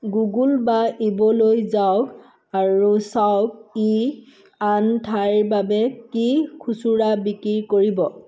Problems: background sounds at intervals